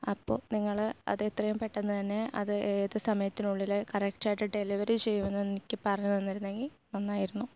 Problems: low volume